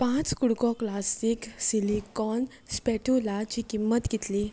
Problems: background sounds at intervals